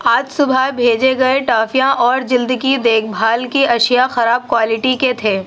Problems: none marked